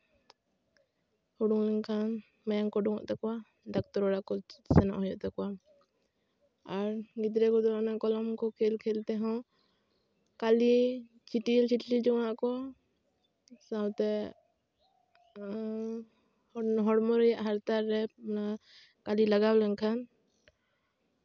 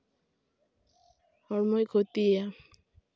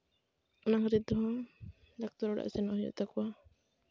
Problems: background sounds at intervals